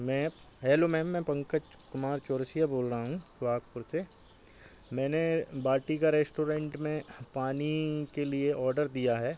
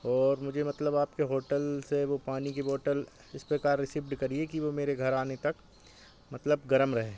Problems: constant background noise